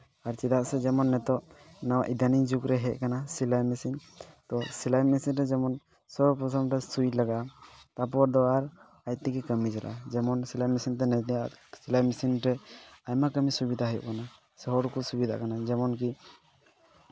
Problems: background sounds at intervals